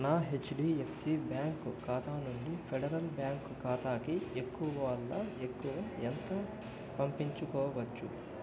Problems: background sounds at intervals, low volume